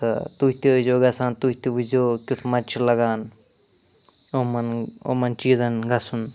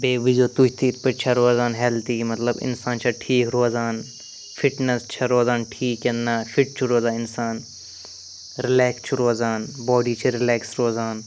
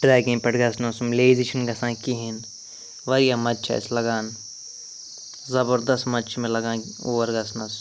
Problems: constant background noise